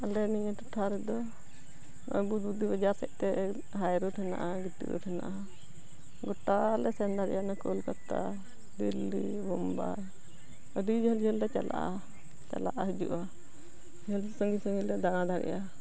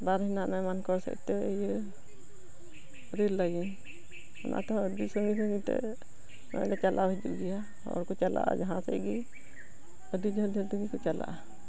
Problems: background sounds at intervals